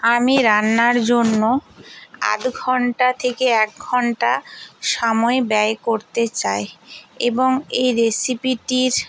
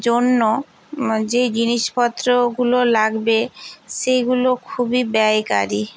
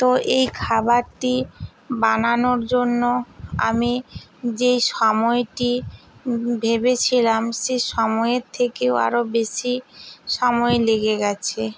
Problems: background sounds at intervals